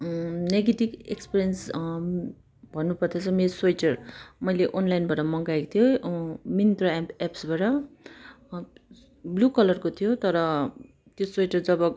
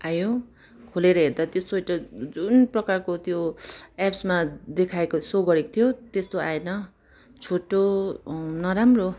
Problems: background sounds at intervals